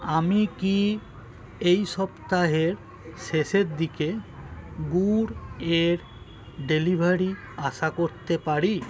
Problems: constant background noise, continuous background conversations